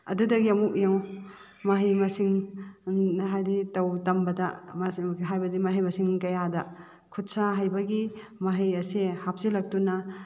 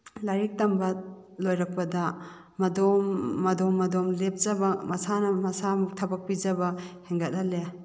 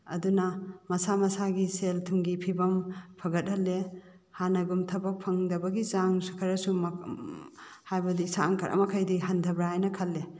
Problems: none marked